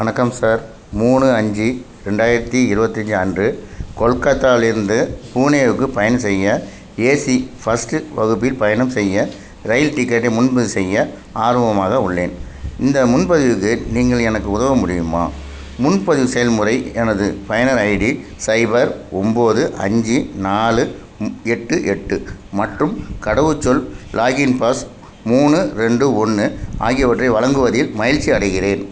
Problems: none marked